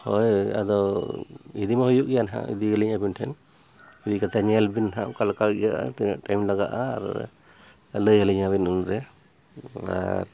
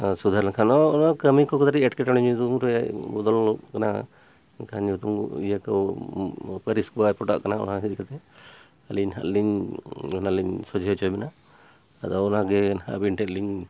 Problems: background sounds at intervals